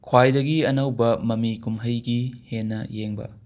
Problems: background sounds at intervals